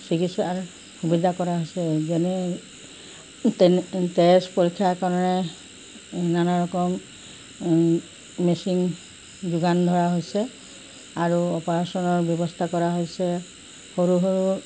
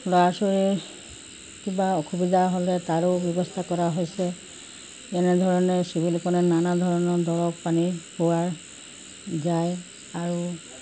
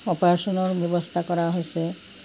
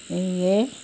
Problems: constant background noise